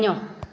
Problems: constant background noise, echo